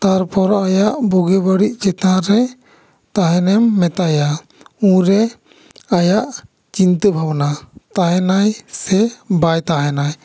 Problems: echo